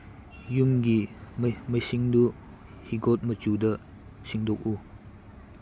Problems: background sounds at intervals